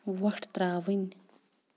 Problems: none marked